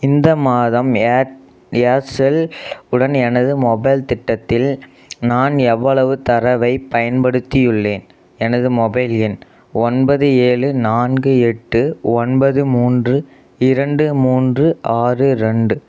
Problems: none marked